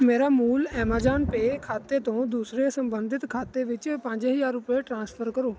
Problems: none marked